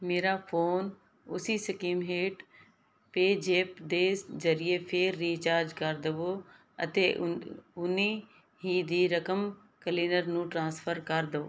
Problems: background sounds at intervals